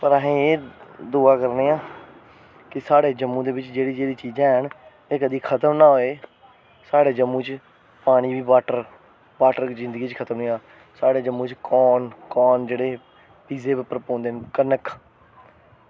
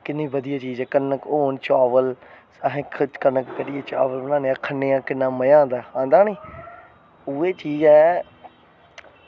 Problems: none marked